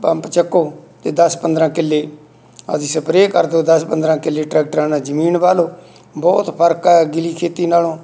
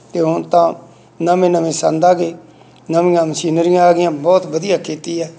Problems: none marked